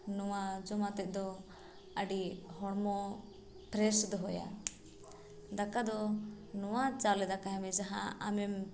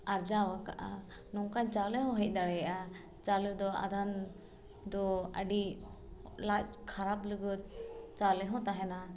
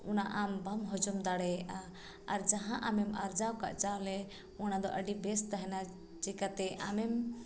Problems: background sounds at intervals